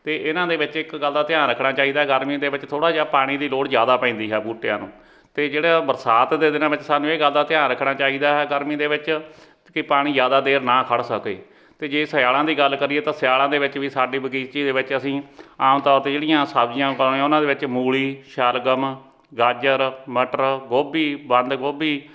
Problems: none marked